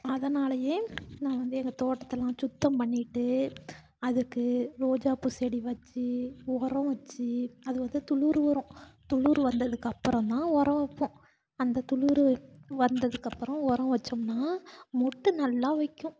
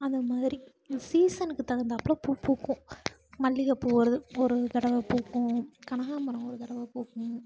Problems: none marked